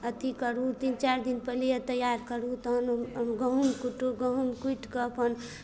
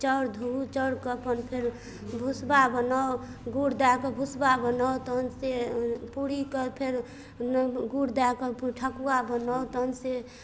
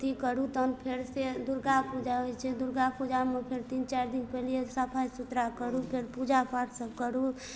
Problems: none marked